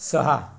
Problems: background sounds at intervals